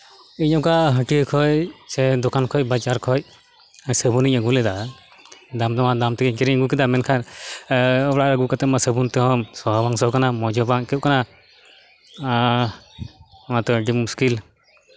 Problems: constant background noise